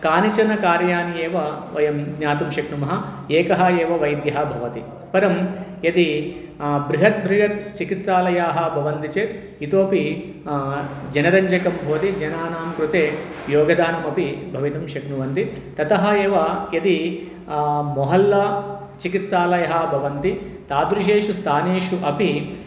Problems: none marked